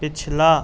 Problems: constant background noise